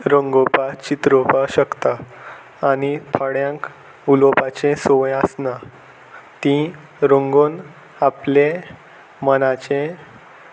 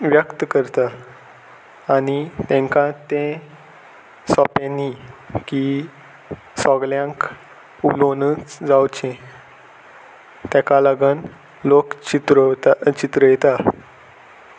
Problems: constant background noise